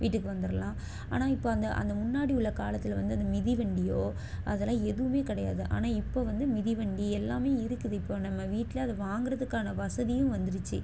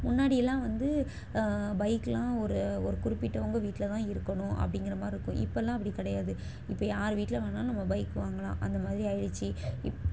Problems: background sounds at intervals